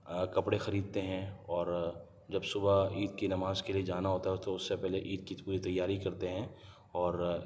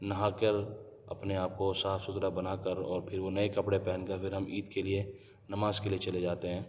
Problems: low volume